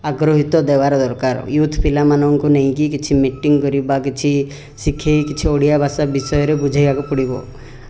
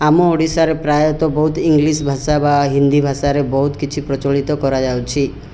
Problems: none marked